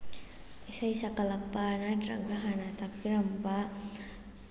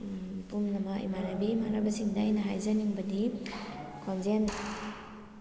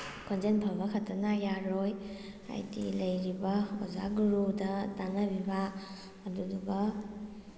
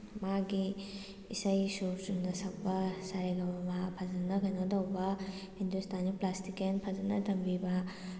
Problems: constant background noise, low volume